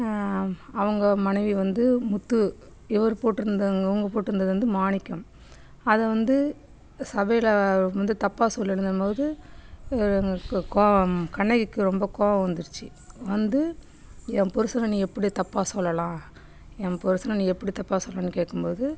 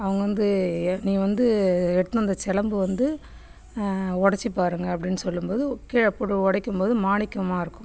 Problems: background sounds at intervals